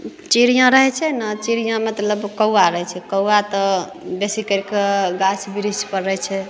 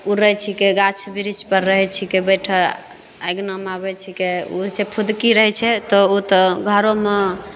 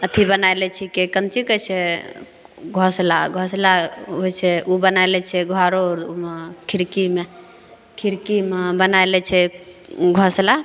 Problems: none marked